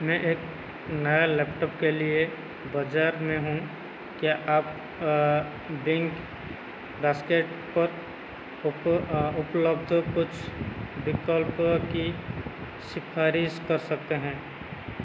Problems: none marked